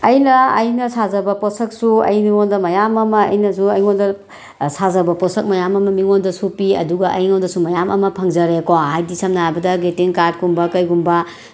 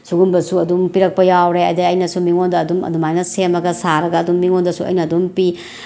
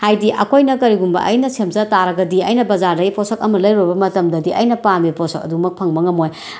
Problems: background sounds at intervals